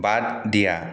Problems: none marked